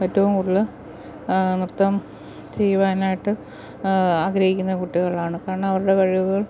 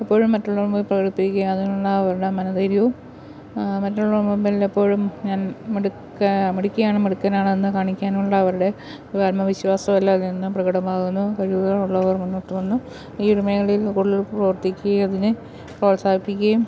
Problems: constant background noise